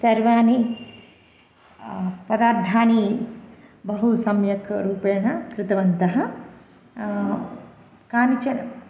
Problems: none marked